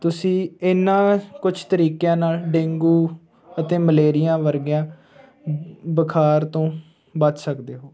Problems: background conversations at intervals